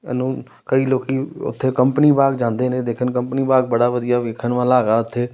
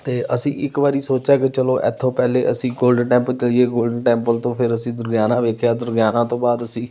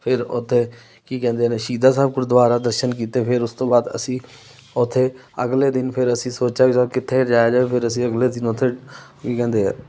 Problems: background sounds at intervals